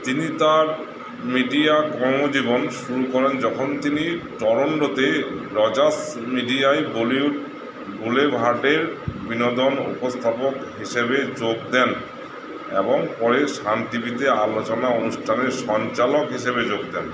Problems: constant background noise